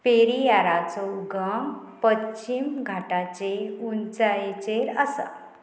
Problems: none marked